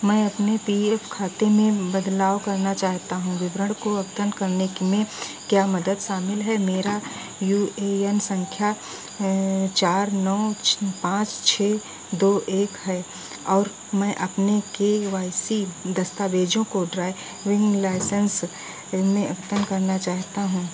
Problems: none marked